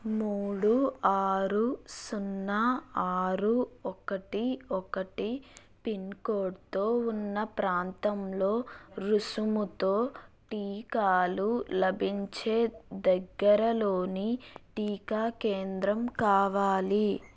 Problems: none marked